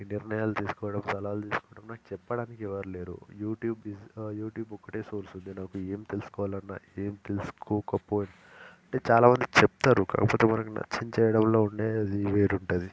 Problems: none marked